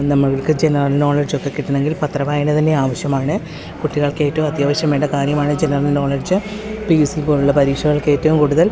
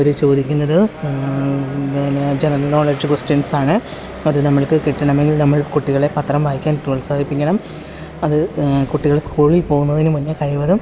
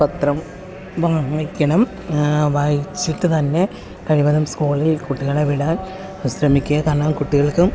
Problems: none marked